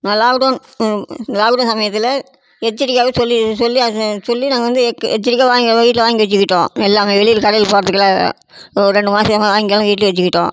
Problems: constant background noise